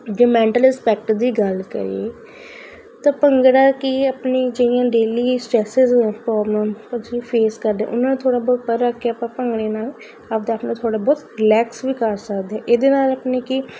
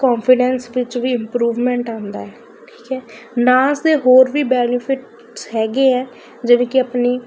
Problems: constant background noise